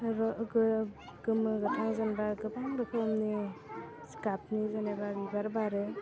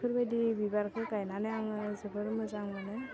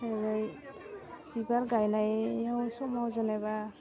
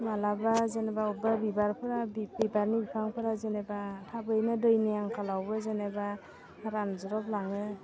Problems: low volume